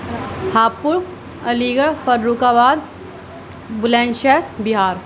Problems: constant background noise, background conversations at intervals